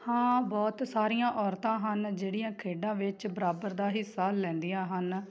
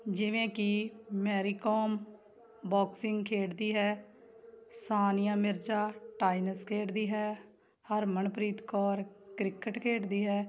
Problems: constant background noise